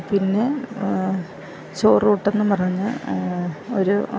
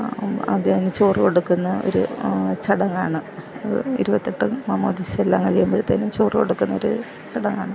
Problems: constant background noise